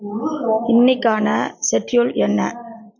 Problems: background conversations at intervals